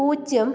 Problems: background sounds at intervals